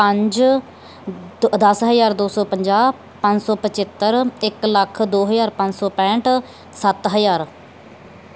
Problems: none marked